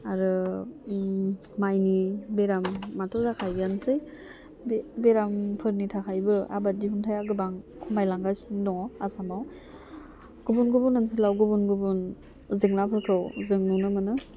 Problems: low volume